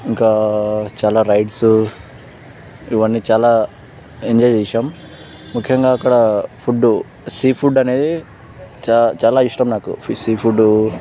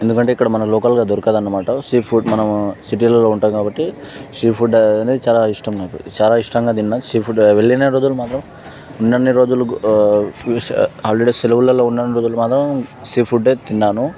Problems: background sounds at intervals